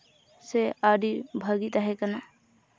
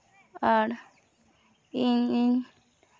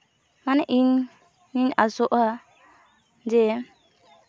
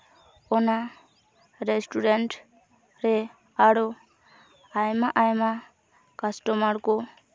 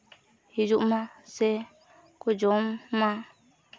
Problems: background sounds at intervals